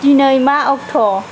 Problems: constant background noise